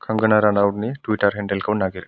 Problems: none marked